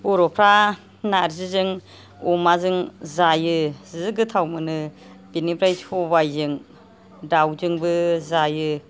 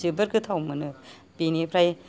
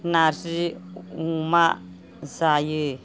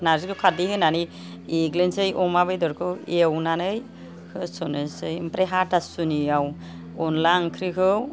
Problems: background conversations at intervals